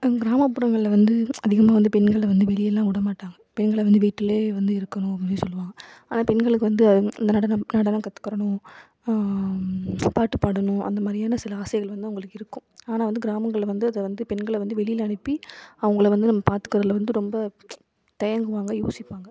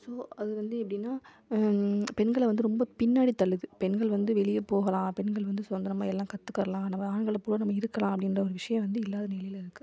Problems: low volume